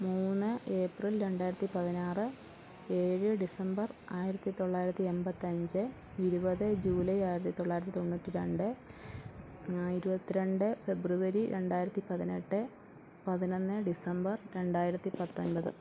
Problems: low volume